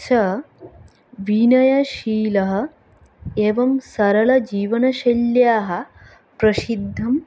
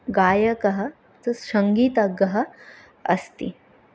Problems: none marked